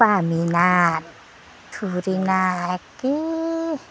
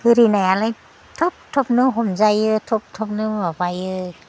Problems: none marked